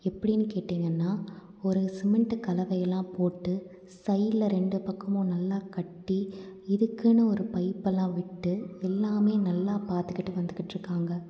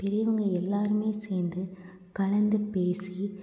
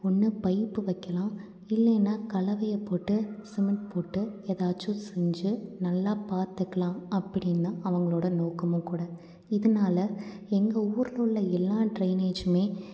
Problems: none marked